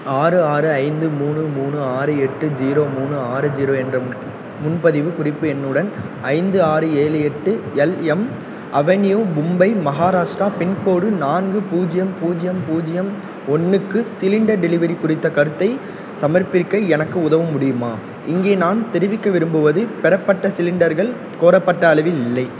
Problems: background sounds at intervals